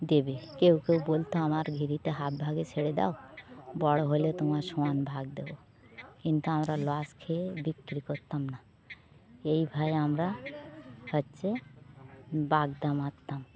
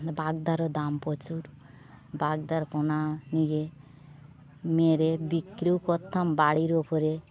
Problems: constant background noise